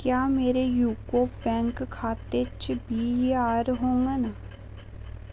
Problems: none marked